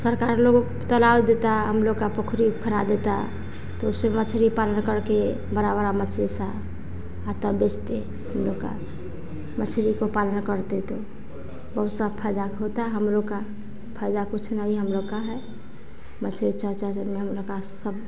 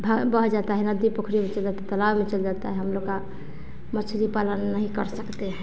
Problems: none marked